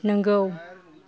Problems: background conversations at intervals